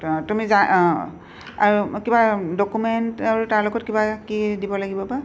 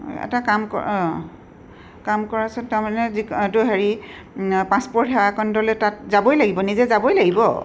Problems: none marked